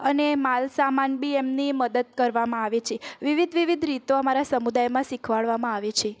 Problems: none marked